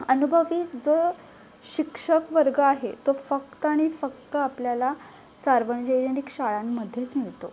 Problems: background sounds at intervals